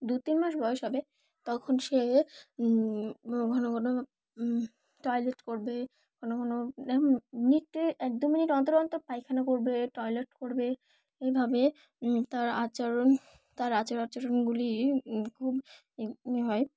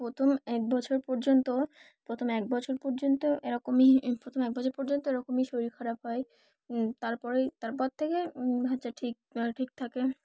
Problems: background sounds at intervals